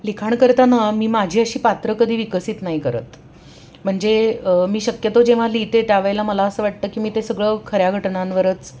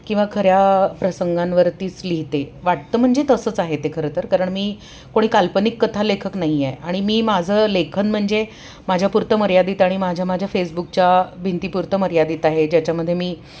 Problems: background sounds at intervals